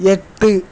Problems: none marked